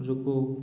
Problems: low volume